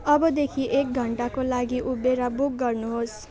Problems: constant background noise, continuous background conversations